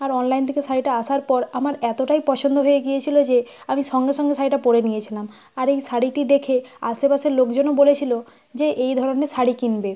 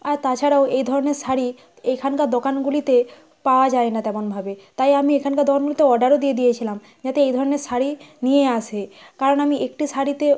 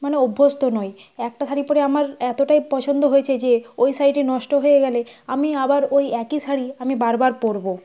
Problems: constant background noise